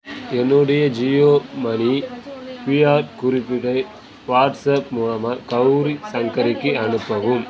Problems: continuous background conversations